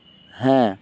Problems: none marked